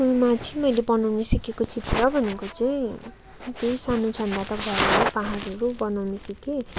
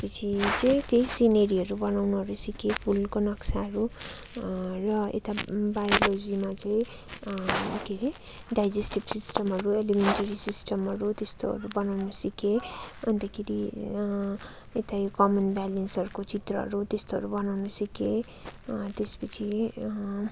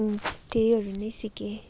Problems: background conversations at intervals